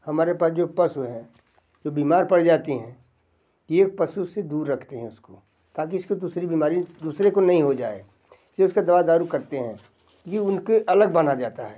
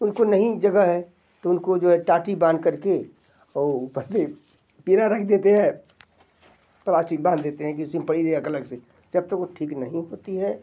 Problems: constant background noise